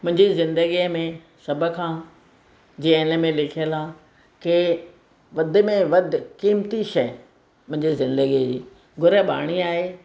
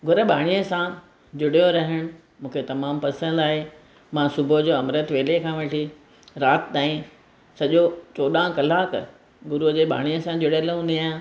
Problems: constant background noise